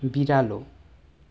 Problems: none marked